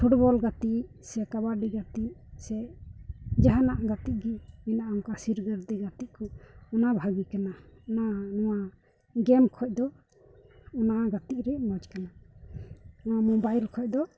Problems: background sounds at intervals